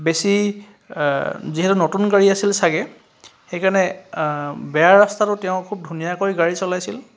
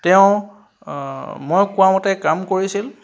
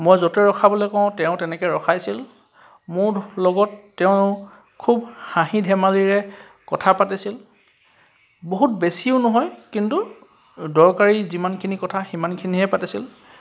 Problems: constant background noise